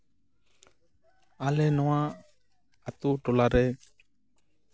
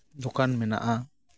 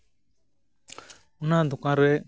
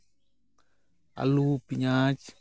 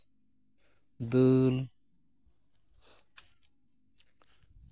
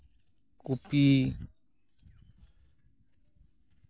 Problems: constant background noise